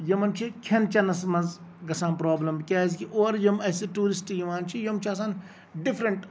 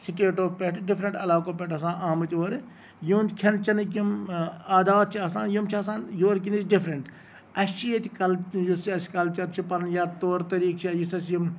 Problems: none marked